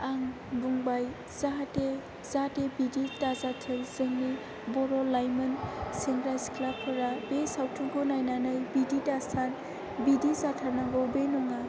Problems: constant background noise